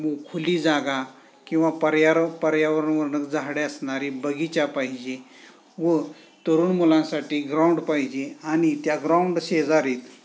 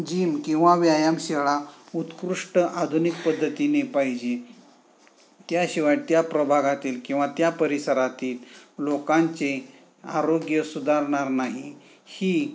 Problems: background sounds at intervals, background conversations at intervals